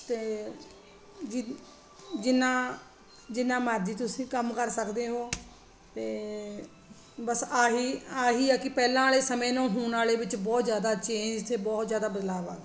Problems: constant background noise